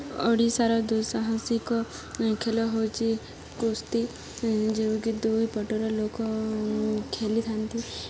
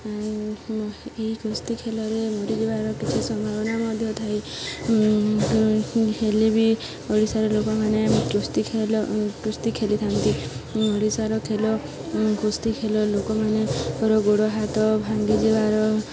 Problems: constant background noise, continuous background conversations